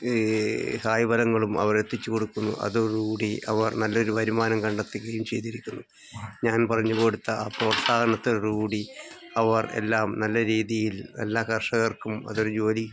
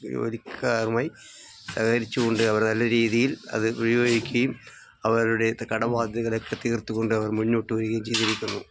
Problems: background sounds at intervals